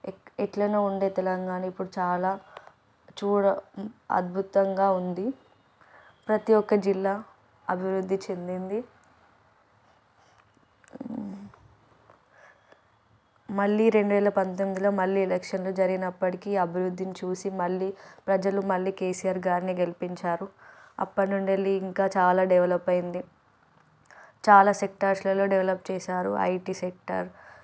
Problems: background sounds at intervals